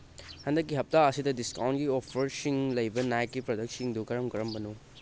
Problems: background sounds at intervals